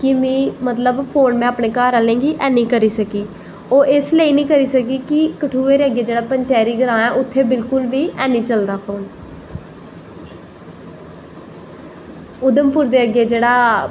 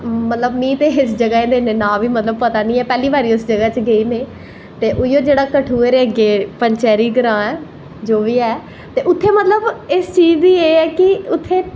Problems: none marked